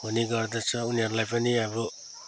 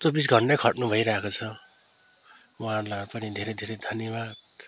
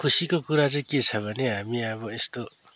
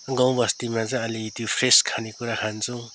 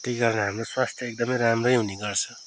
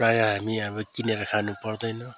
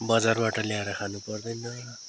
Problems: constant background noise, background conversations at intervals